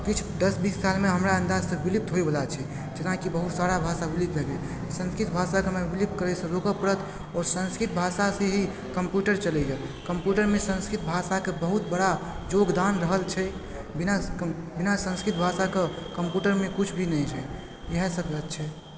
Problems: constant background noise